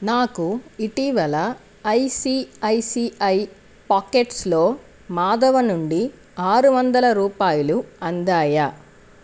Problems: constant background noise